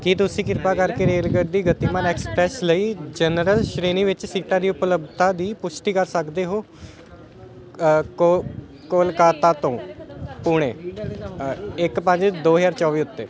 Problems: continuous background conversations